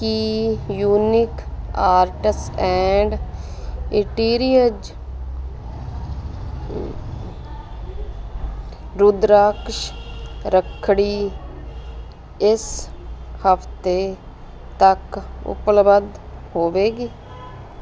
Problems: constant background noise